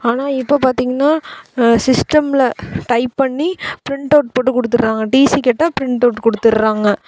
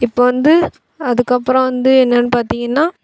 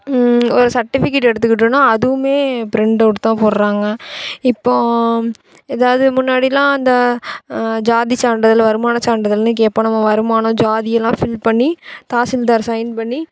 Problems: constant background noise